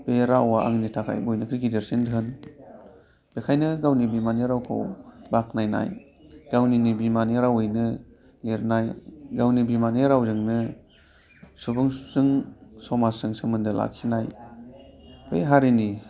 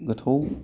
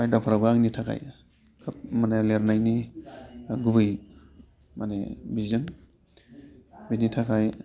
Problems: constant background noise